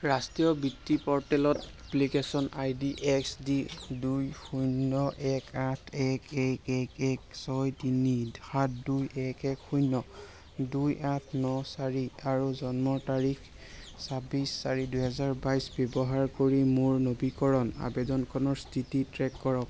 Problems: constant background noise